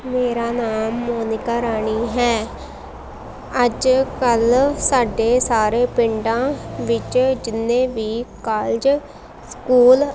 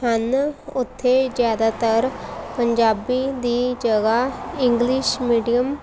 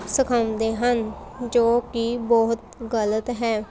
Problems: constant background noise, background conversations at intervals